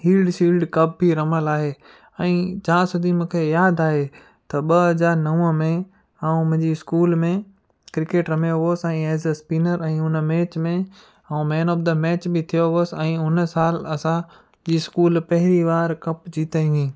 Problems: background sounds at intervals, echo